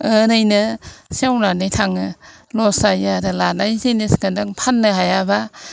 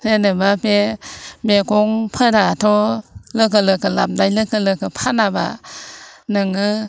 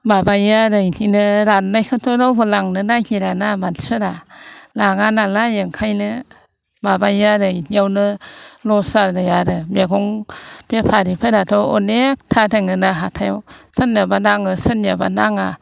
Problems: none marked